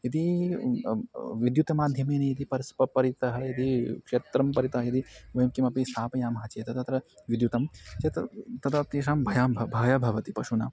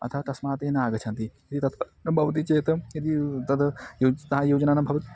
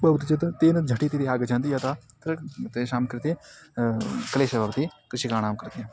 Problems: constant background noise